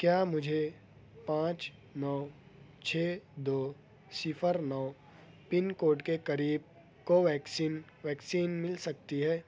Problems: none marked